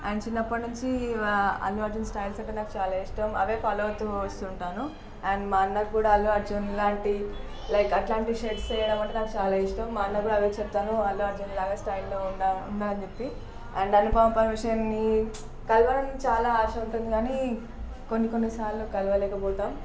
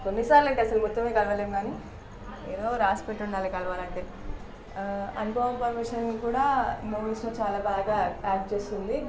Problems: none marked